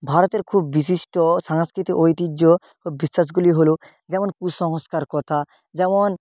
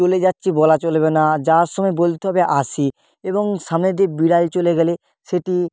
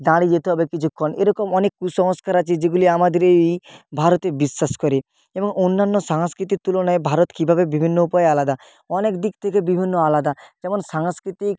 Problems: constant background noise